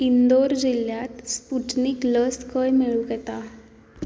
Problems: none marked